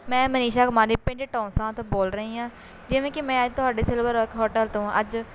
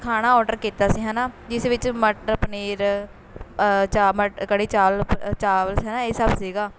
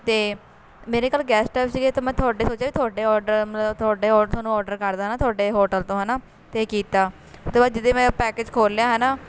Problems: constant background noise